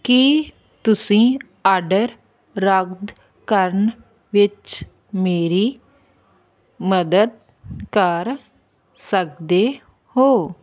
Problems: none marked